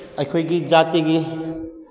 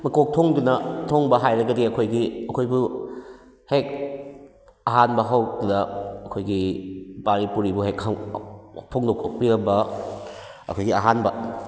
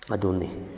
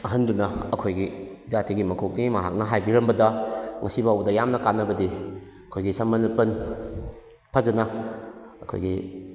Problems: background sounds at intervals